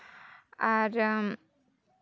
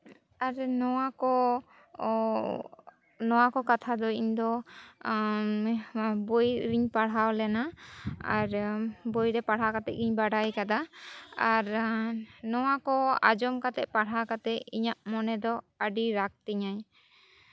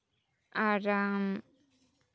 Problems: none marked